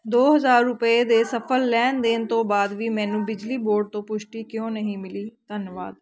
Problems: none marked